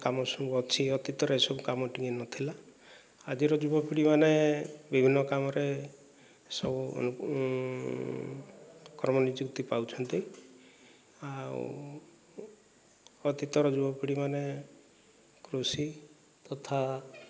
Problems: low volume